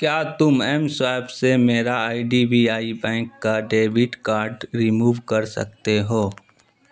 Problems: none marked